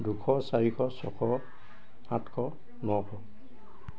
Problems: constant background noise, background conversations at intervals